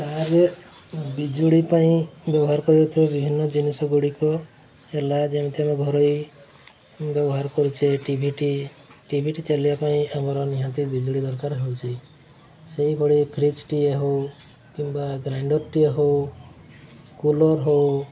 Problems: constant background noise, continuous background conversations